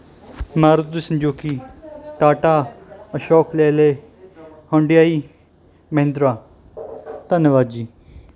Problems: continuous background conversations